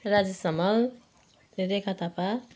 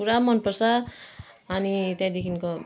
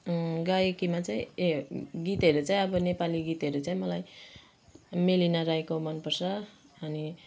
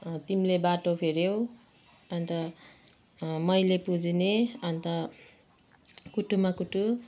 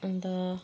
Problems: background conversations at intervals